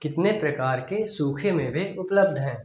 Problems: echo